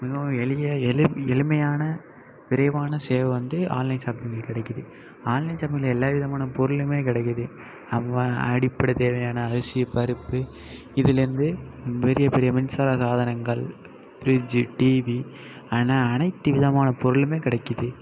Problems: constant background noise, continuous background conversations